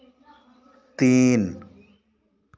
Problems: constant background noise